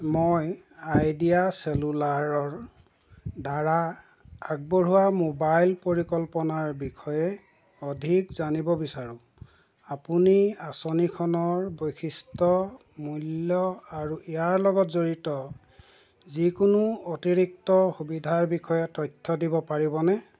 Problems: constant background noise